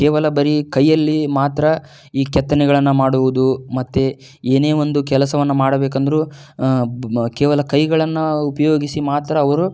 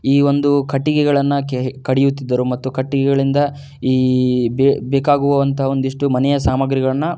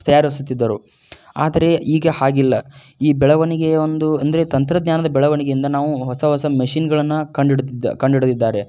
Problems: none marked